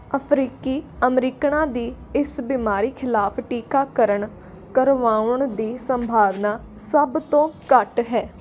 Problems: constant background noise